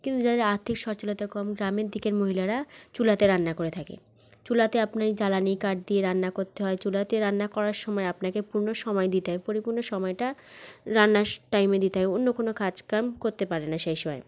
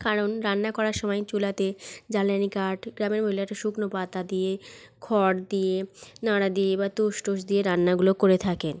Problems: none marked